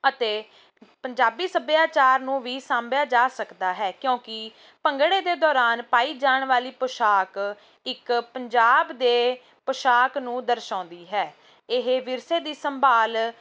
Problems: none marked